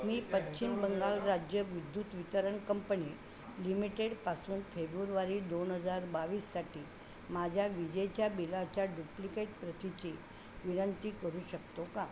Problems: none marked